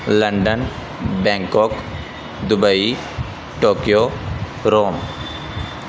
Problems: constant background noise